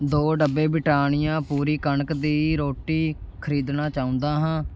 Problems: background sounds at intervals